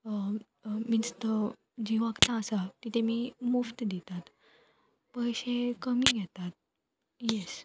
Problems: constant background noise, background conversations at intervals